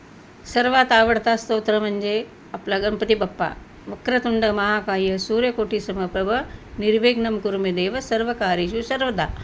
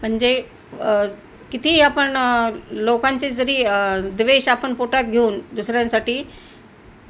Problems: none marked